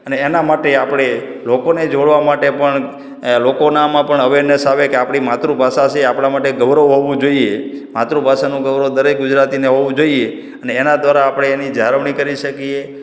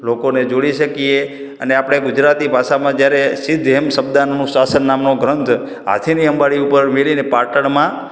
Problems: none marked